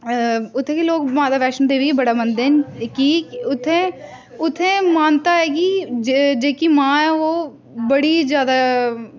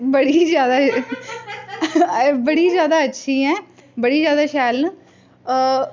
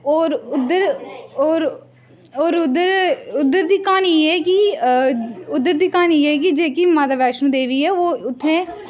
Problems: constant background noise, background conversations at intervals